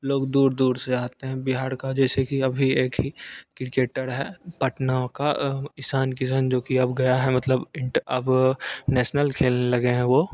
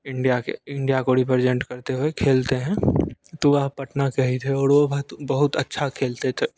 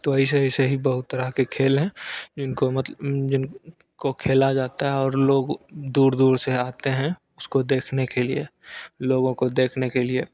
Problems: constant background noise